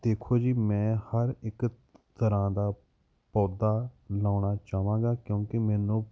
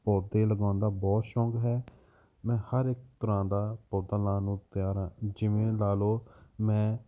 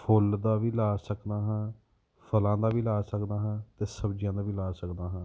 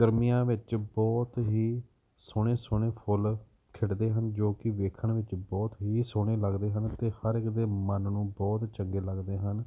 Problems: background sounds at intervals